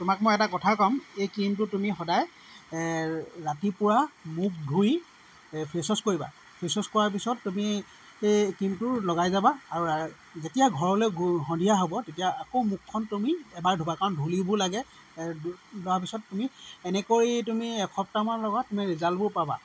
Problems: background sounds at intervals